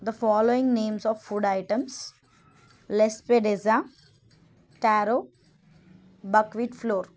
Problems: none marked